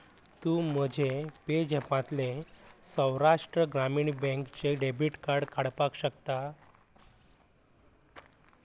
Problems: constant background noise, low volume